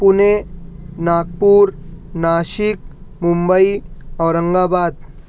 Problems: none marked